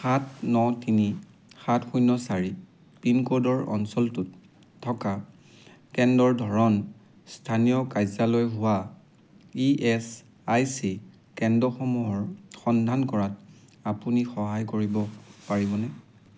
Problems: none marked